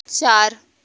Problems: constant background noise